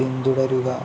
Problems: constant background noise